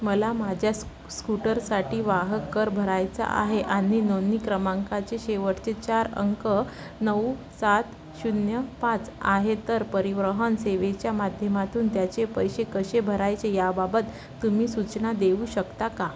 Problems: constant background noise, continuous background conversations